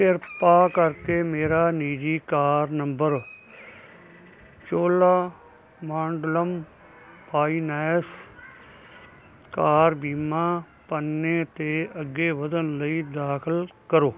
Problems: none marked